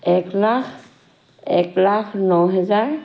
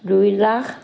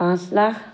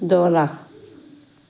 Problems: constant background noise